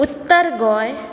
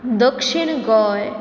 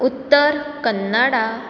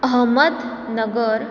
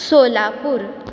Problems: background sounds at intervals